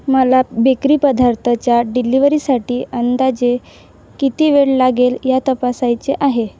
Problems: none marked